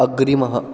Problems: constant background noise